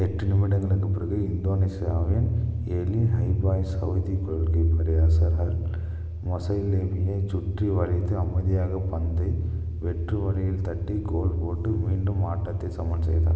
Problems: constant background noise, low volume